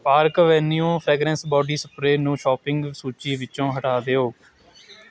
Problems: background conversations at intervals